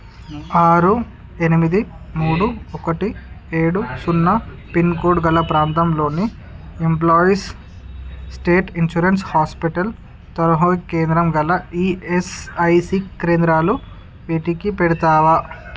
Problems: background sounds at intervals, background conversations at intervals